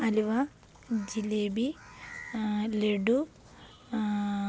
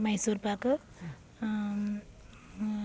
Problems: background sounds at intervals, low volume